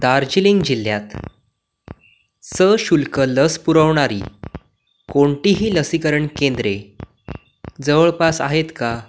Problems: constant background noise